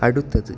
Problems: none marked